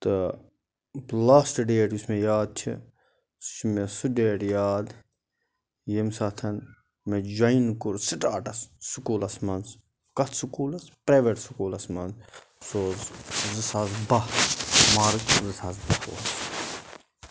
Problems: background sounds at intervals